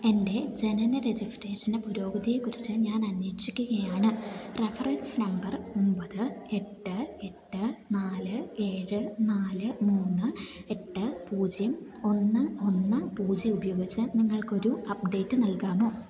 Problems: none marked